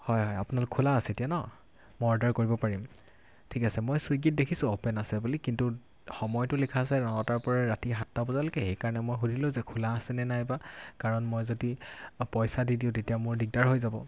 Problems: constant background noise